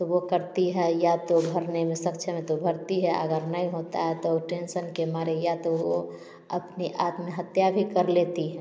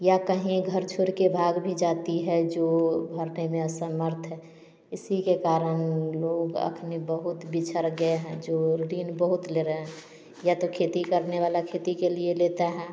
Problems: none marked